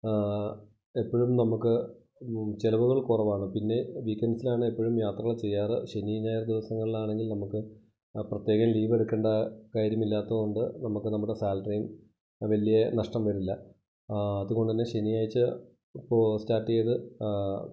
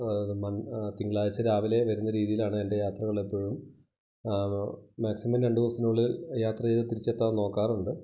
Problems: low volume